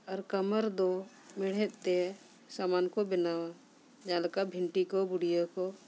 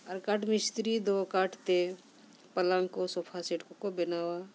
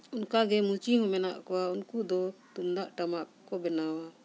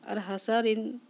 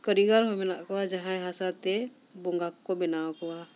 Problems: none marked